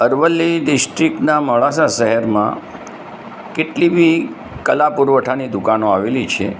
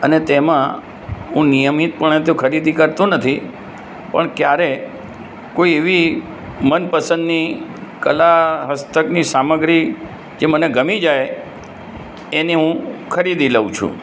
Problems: constant background noise